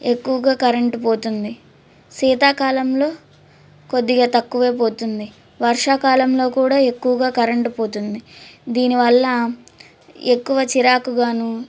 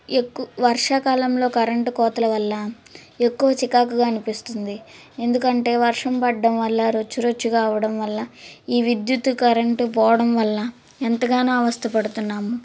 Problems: none marked